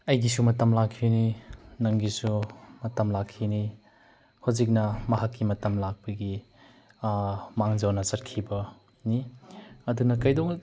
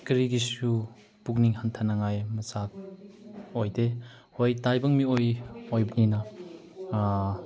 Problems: background sounds at intervals